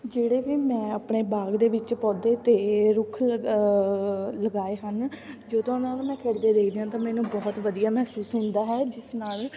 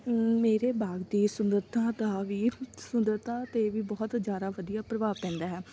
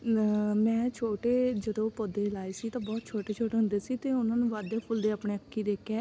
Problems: constant background noise, background conversations at intervals